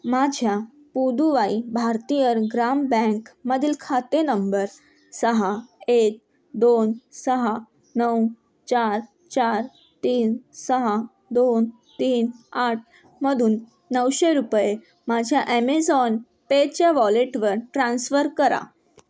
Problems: constant background noise